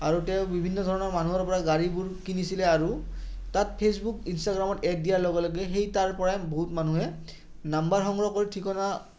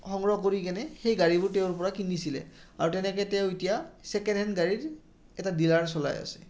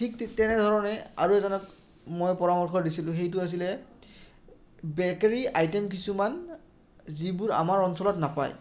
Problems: none marked